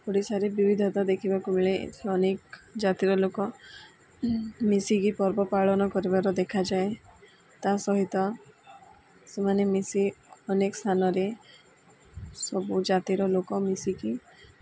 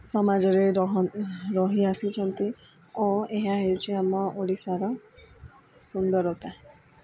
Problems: none marked